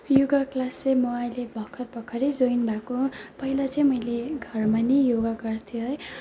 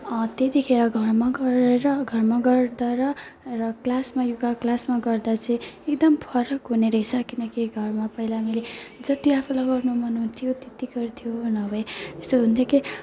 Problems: none marked